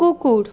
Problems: constant background noise, background conversations at intervals